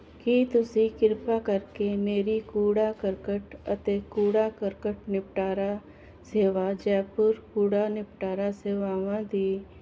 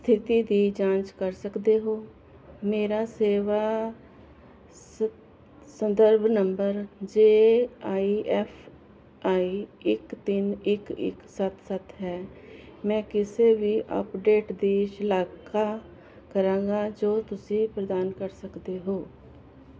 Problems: constant background noise